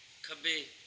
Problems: background sounds at intervals